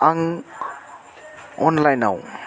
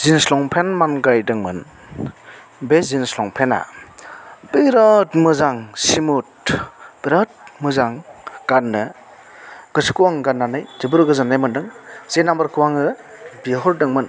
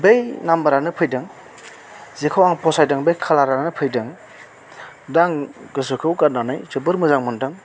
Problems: constant background noise